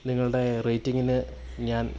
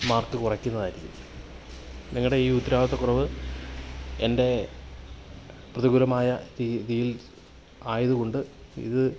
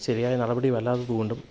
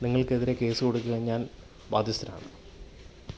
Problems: low volume